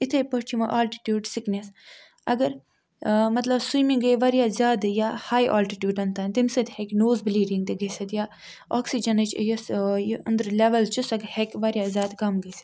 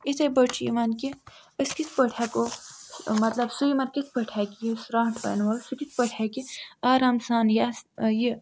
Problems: background sounds at intervals